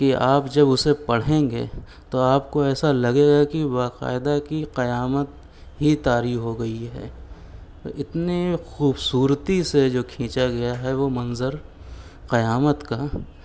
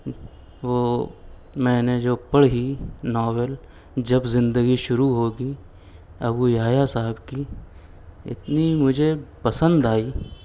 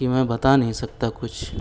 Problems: none marked